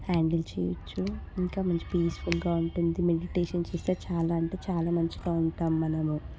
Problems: background conversations at intervals, low volume